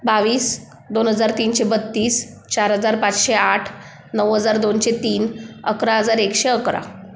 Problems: none marked